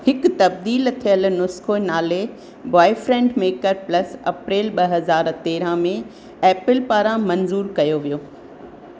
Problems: constant background noise